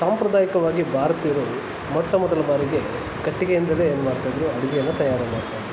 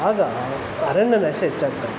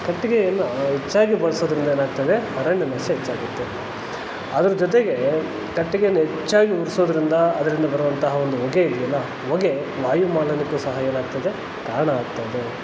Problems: constant background noise